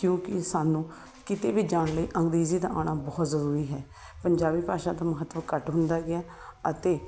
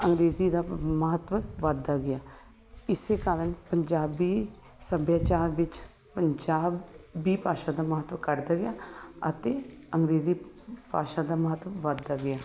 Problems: none marked